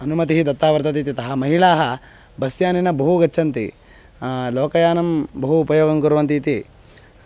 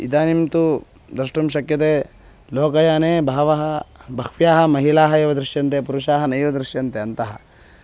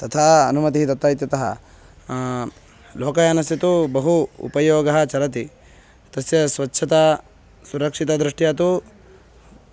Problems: constant background noise